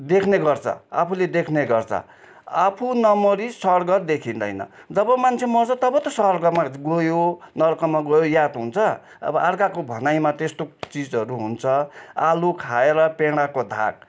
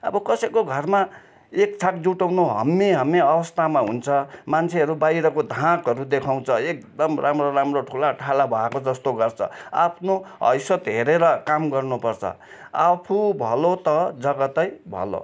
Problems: none marked